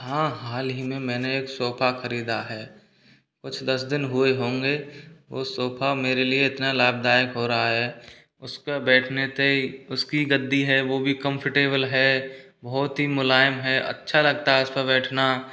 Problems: none marked